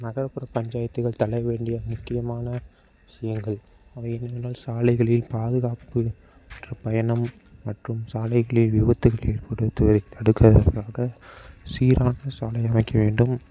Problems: none marked